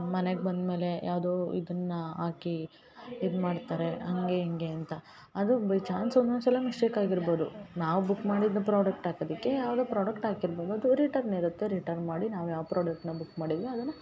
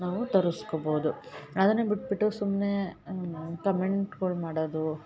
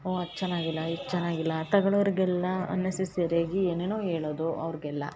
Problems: background sounds at intervals